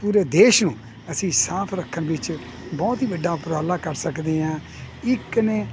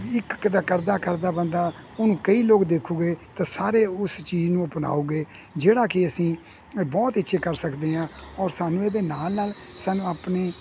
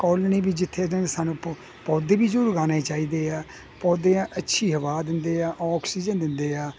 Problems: constant background noise